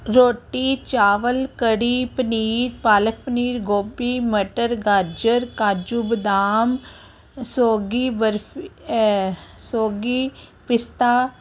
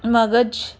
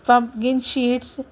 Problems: background conversations at intervals